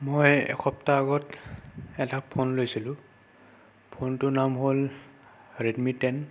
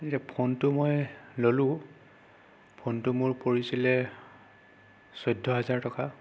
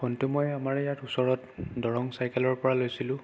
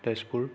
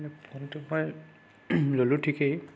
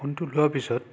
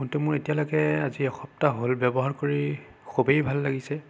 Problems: none marked